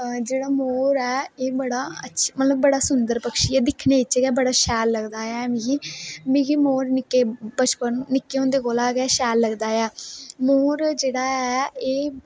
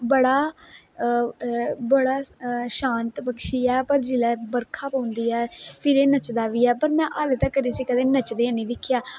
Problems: none marked